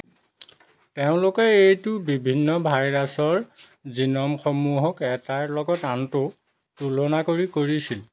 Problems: constant background noise